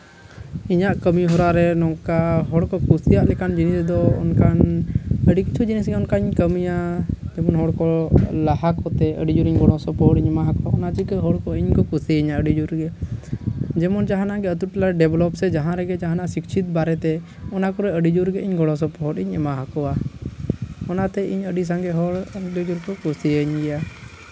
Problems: constant background noise, background conversations at intervals